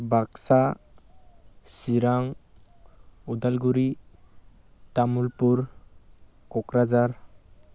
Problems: none marked